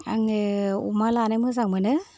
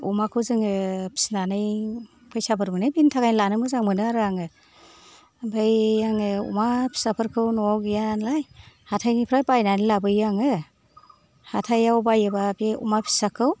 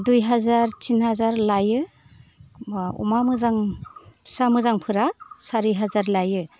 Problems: background sounds at intervals